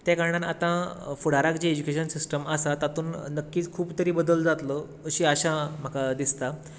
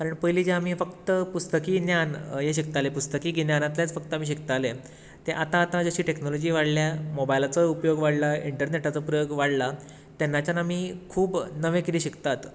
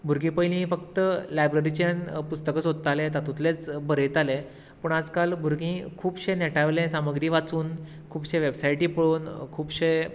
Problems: constant background noise